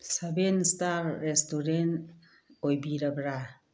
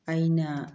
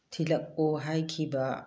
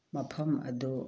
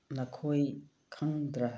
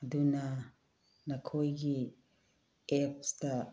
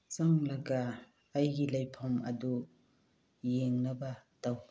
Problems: background sounds at intervals